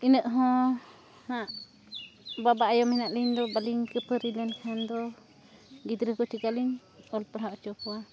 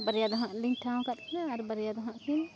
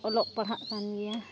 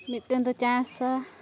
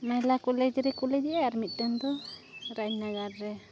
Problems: background sounds at intervals